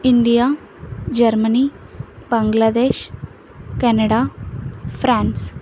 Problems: constant background noise